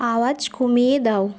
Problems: constant background noise